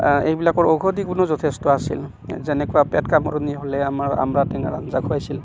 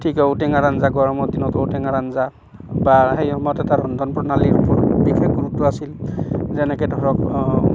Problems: none marked